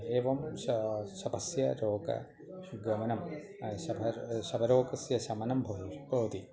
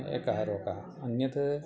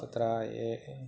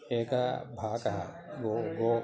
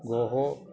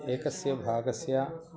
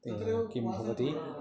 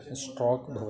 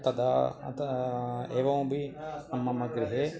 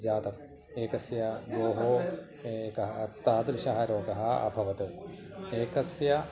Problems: continuous background conversations